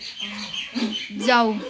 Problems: constant background noise